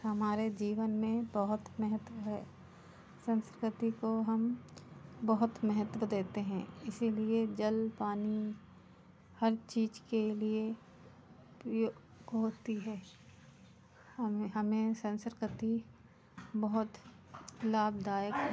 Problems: constant background noise, background conversations at intervals